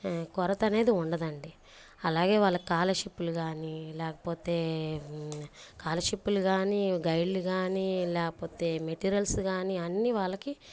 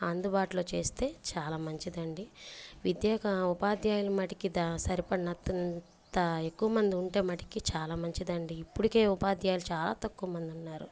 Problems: background sounds at intervals, low volume